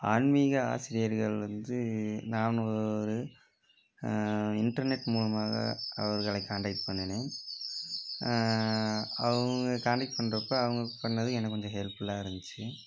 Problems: constant background noise